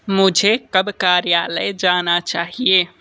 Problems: background sounds at intervals